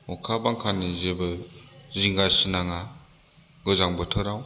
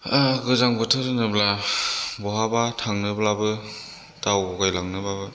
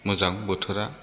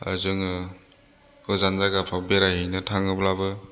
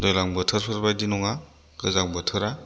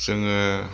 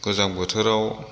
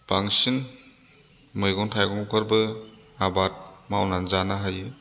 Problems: none marked